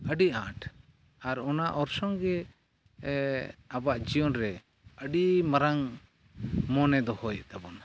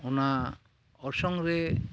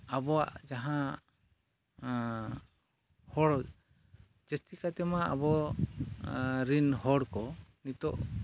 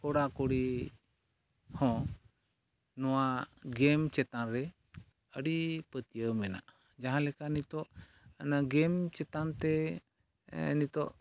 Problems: none marked